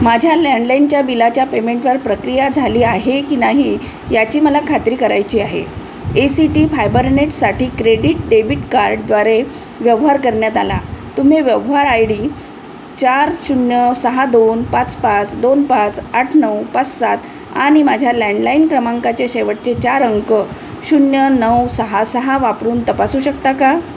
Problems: constant background noise